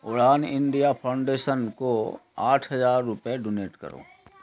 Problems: constant background noise